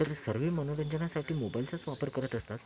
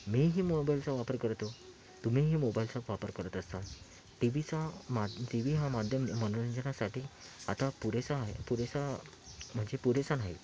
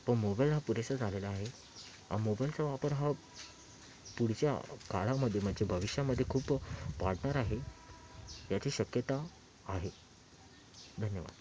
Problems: constant background noise, background conversations at intervals, low volume